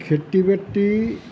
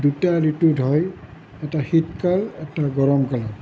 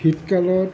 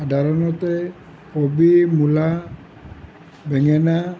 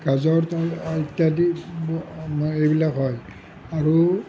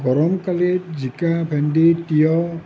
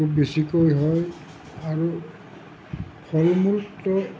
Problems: low volume